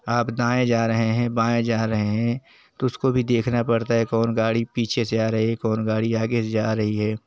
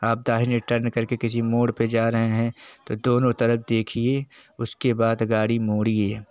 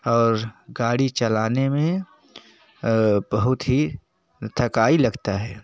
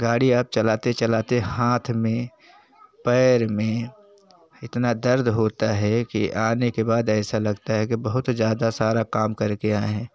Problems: none marked